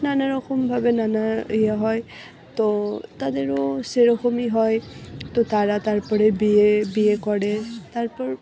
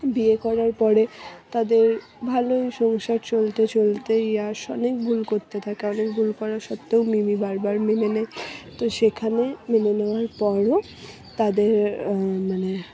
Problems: background sounds at intervals, background conversations at intervals